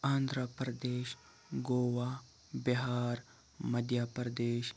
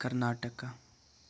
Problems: none marked